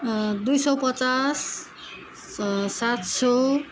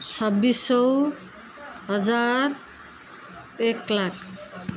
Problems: none marked